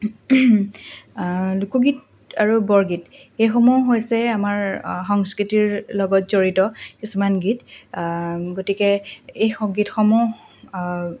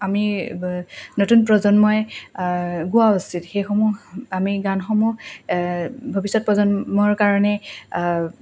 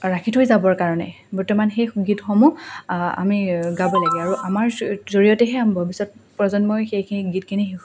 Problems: background sounds at intervals